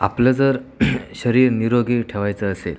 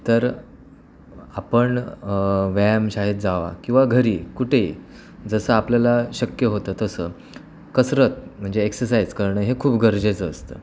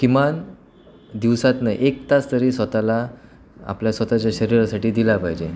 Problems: none marked